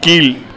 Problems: constant background noise